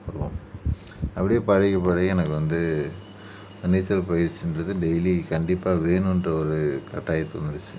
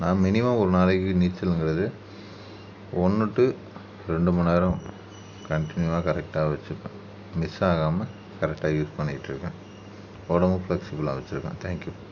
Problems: background sounds at intervals